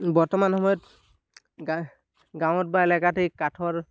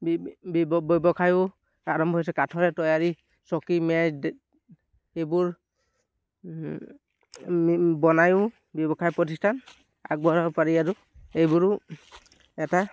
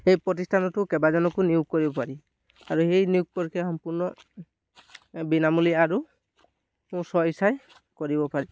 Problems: none marked